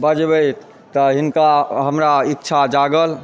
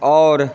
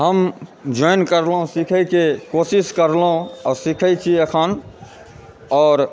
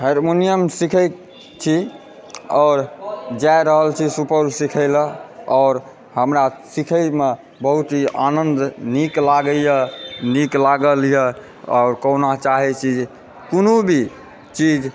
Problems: background sounds at intervals, background conversations at intervals